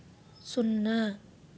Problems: none marked